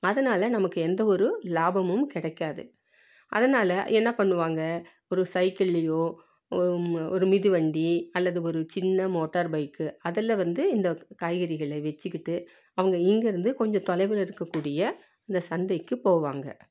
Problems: none marked